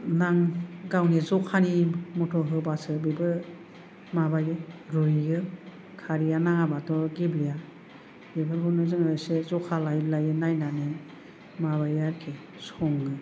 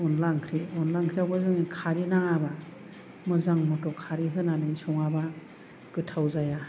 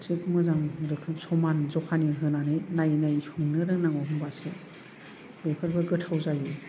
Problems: none marked